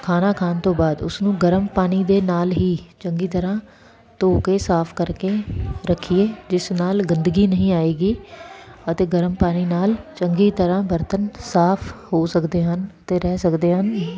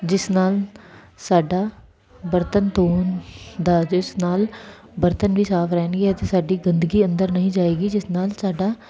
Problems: background sounds at intervals